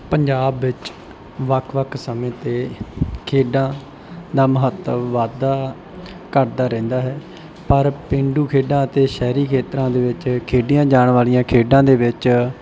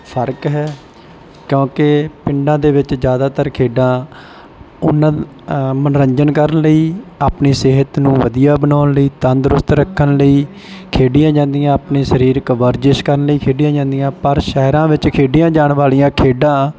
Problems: background sounds at intervals